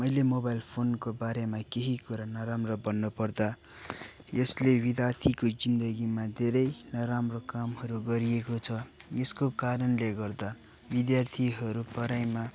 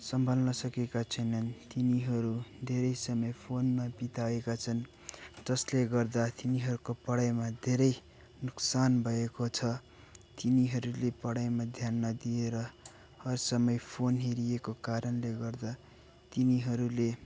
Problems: constant background noise, background conversations at intervals